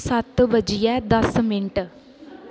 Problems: constant background noise